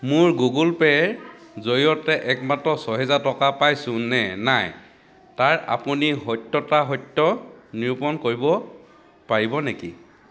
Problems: constant background noise